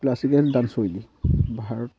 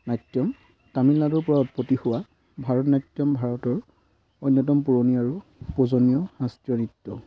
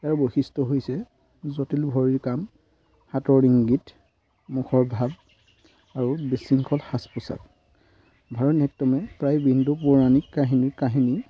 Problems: constant background noise